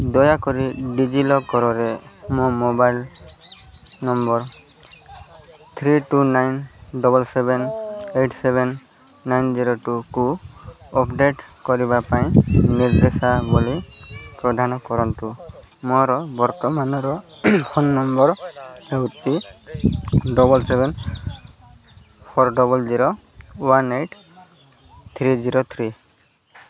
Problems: none marked